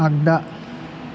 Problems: constant background noise